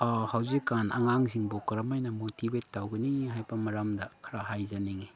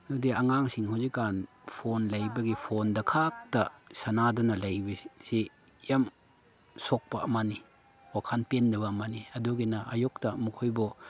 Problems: background sounds at intervals, background conversations at intervals